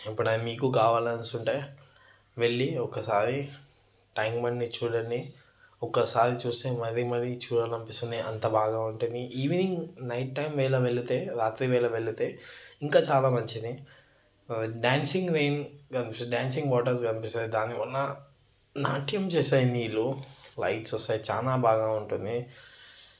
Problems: none marked